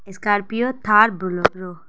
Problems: none marked